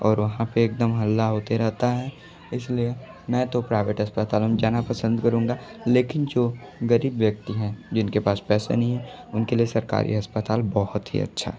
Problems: background sounds at intervals